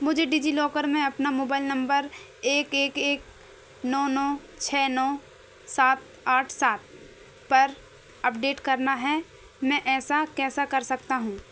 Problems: none marked